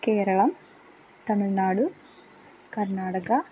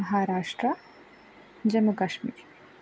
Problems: constant background noise